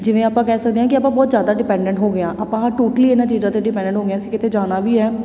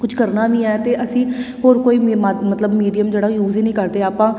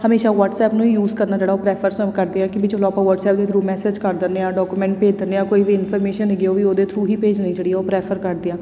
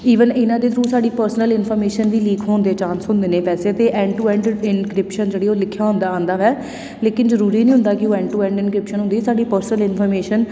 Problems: none marked